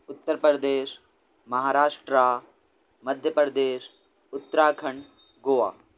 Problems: background sounds at intervals